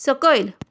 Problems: none marked